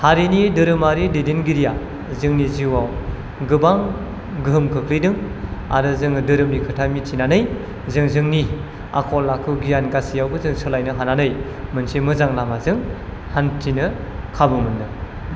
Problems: none marked